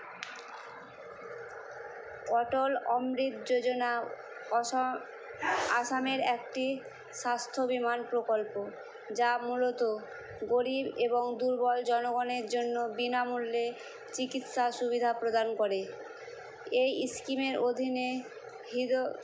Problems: constant background noise